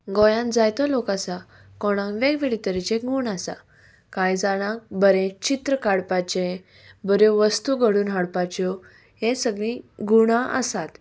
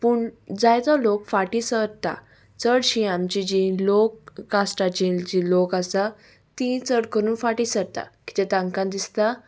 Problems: background sounds at intervals